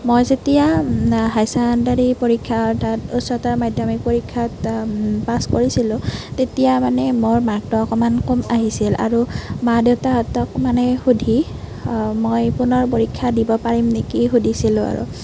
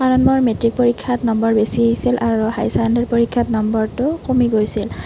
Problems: none marked